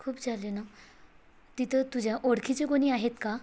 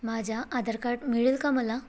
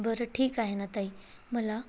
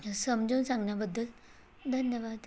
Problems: none marked